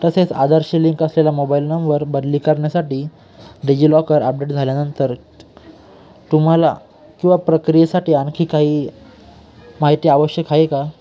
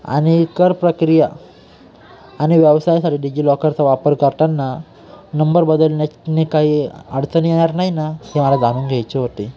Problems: background sounds at intervals